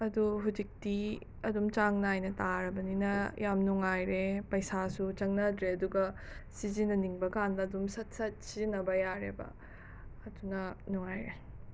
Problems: none marked